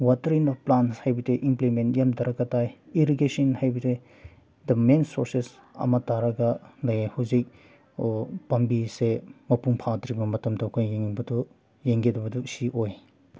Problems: background sounds at intervals